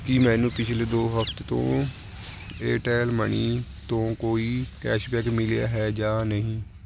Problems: background sounds at intervals